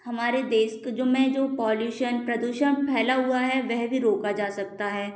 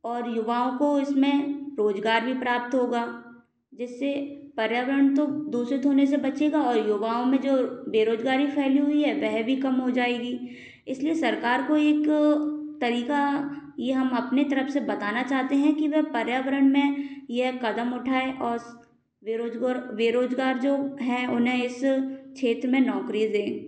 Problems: constant background noise